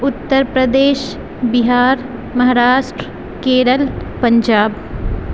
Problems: constant background noise